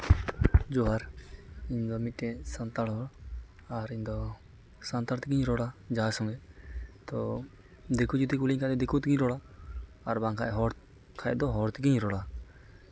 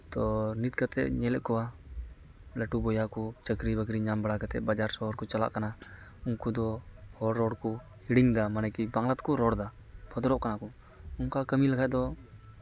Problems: constant background noise